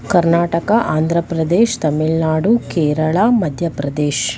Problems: none marked